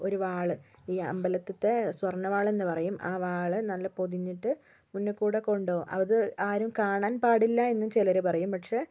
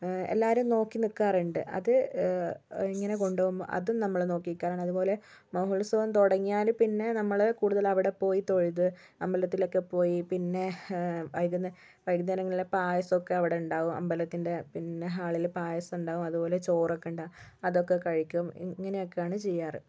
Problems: none marked